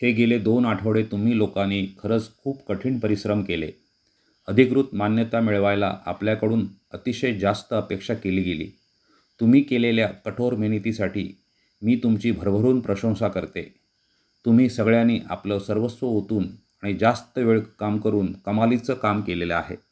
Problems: background sounds at intervals